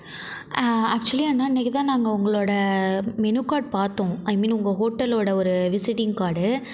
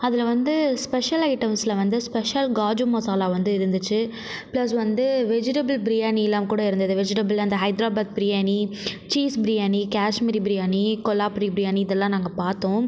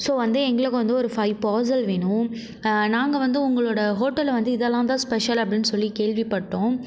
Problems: background sounds at intervals